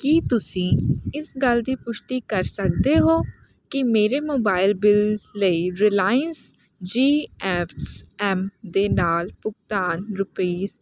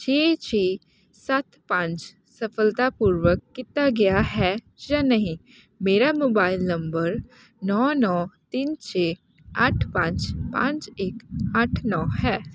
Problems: none marked